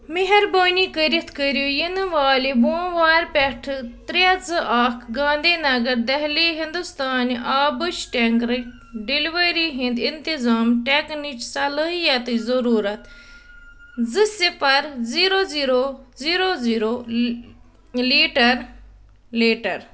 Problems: none marked